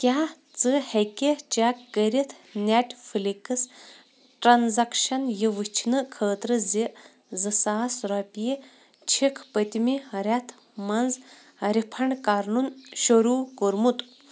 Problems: constant background noise